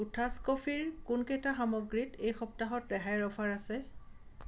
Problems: constant background noise